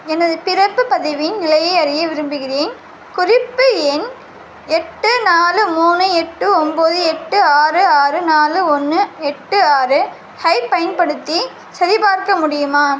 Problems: constant background noise